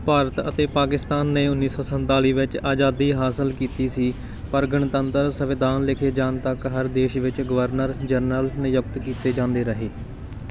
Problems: none marked